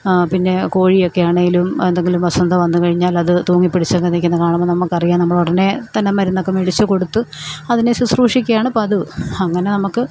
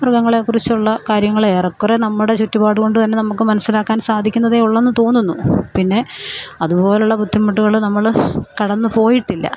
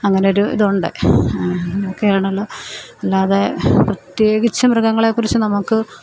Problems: none marked